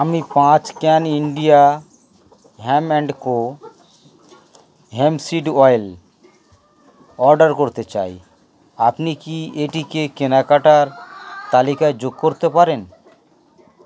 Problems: none marked